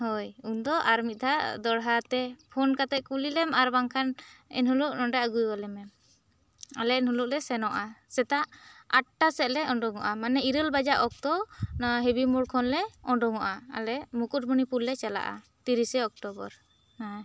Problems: none marked